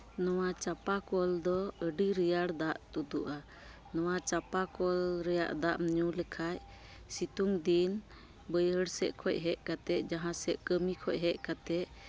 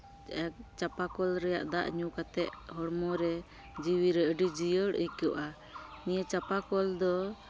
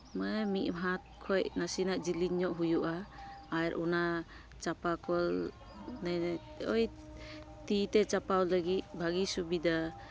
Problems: none marked